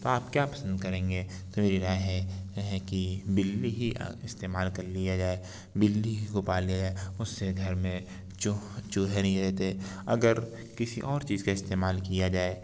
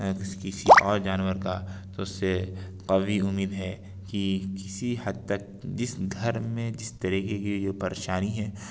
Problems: none marked